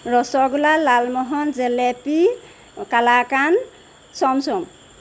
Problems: none marked